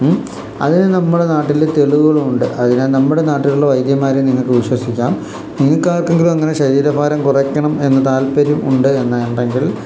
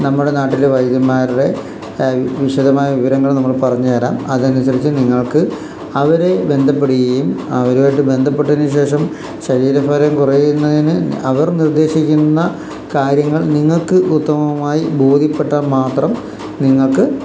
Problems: constant background noise